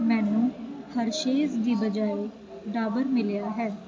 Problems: constant background noise